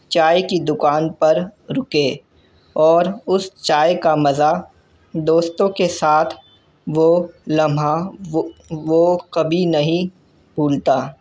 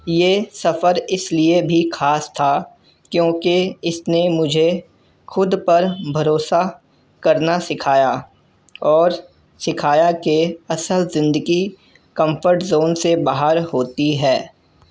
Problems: none marked